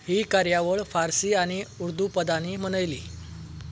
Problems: background sounds at intervals